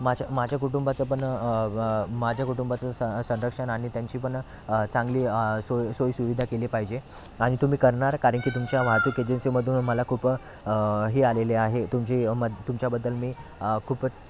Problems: constant background noise, background conversations at intervals